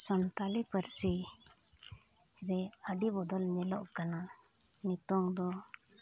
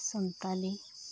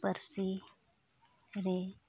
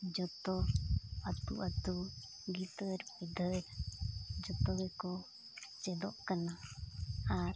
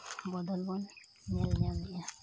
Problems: none marked